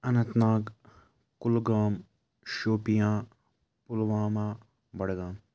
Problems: background sounds at intervals